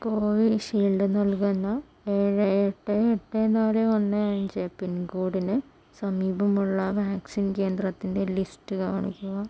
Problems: none marked